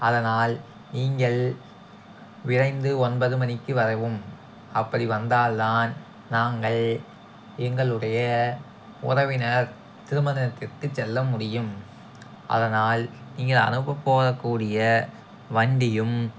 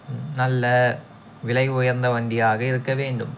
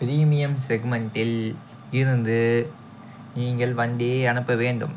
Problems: background sounds at intervals